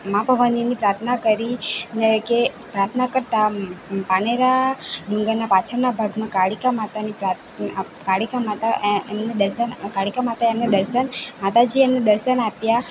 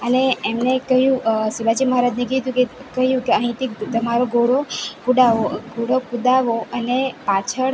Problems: constant background noise